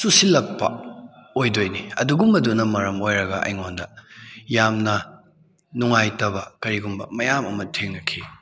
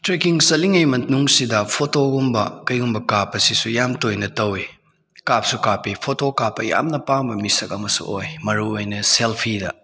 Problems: none marked